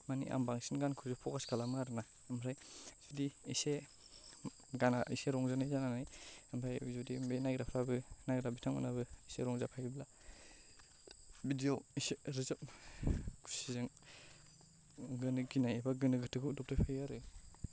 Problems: low volume